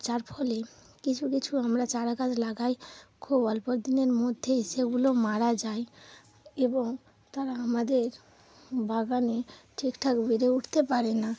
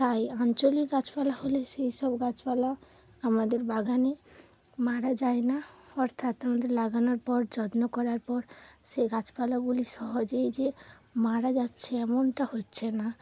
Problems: none marked